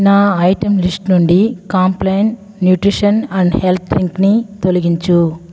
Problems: background sounds at intervals